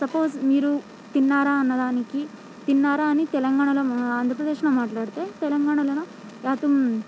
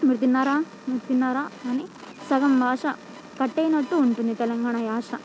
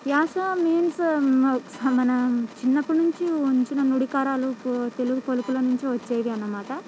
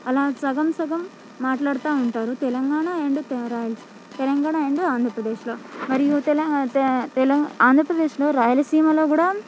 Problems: background sounds at intervals, background conversations at intervals